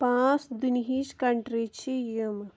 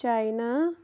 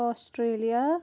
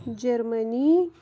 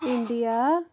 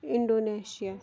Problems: background sounds at intervals